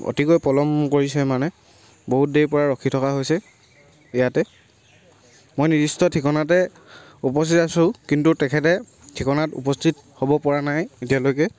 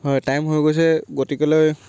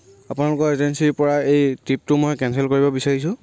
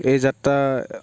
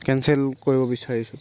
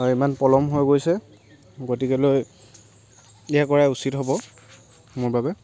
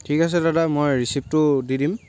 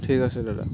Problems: background sounds at intervals